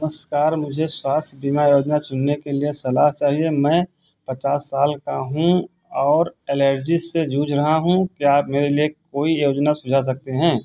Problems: constant background noise